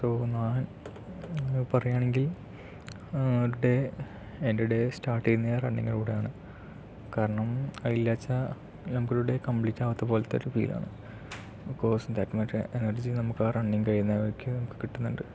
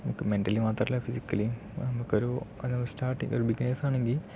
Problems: none marked